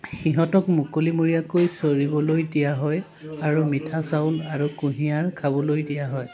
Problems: continuous background conversations